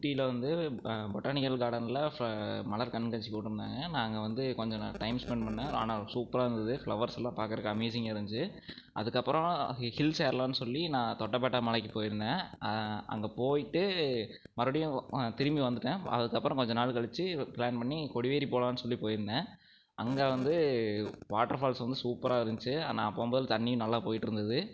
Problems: none marked